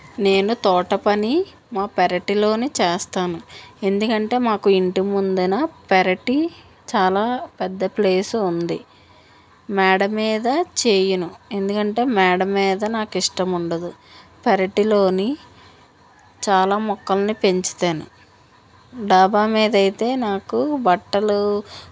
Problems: none marked